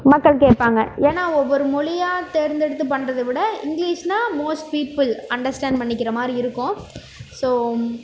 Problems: background sounds at intervals